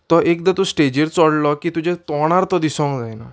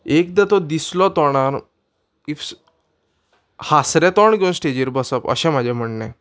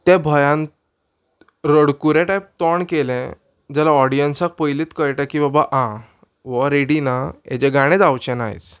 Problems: background sounds at intervals